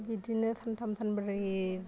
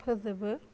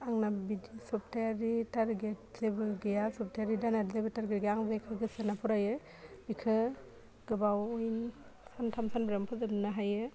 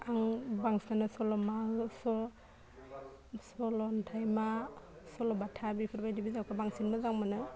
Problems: low volume